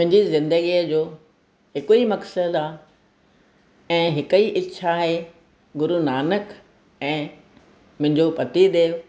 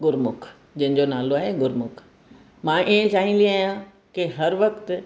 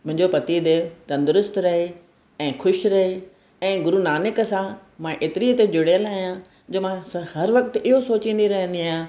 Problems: none marked